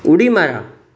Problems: background sounds at intervals